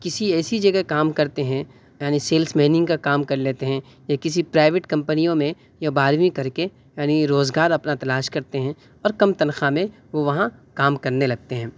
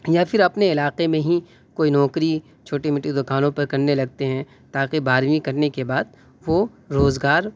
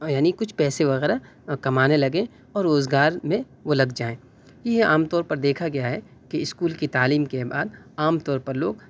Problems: background sounds at intervals